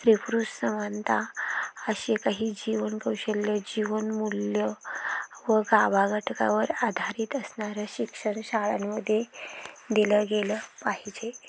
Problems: background sounds at intervals